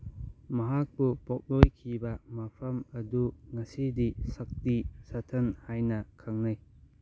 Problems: none marked